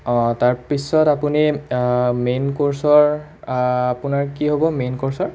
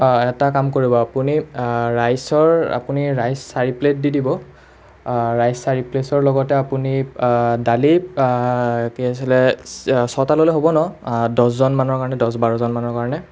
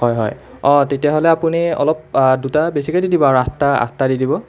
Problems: continuous background conversations